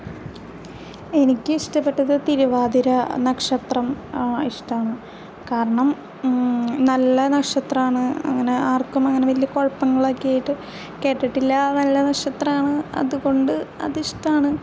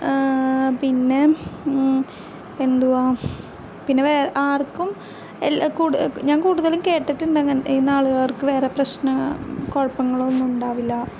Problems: background sounds at intervals